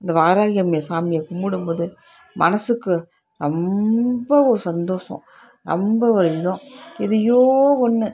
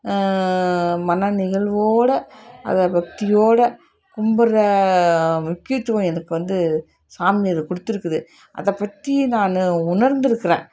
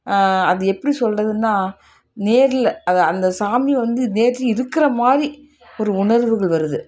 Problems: constant background noise, continuous background conversations